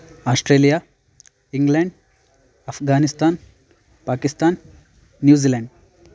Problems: constant background noise